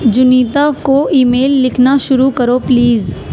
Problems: constant background noise